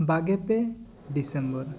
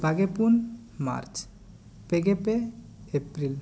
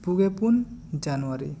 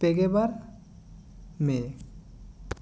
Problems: none marked